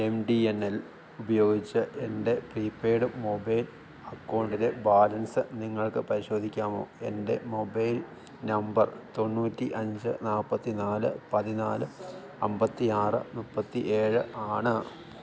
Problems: none marked